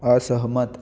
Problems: constant background noise